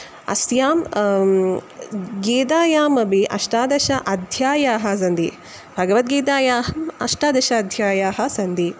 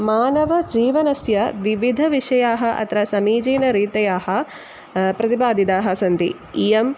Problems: none marked